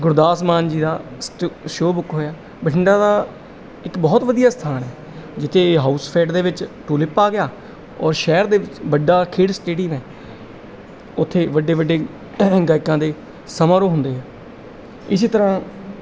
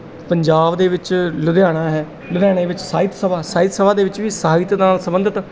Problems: background sounds at intervals